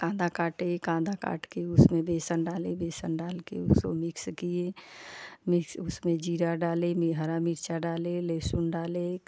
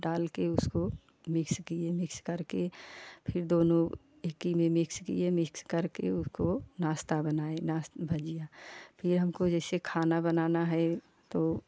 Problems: none marked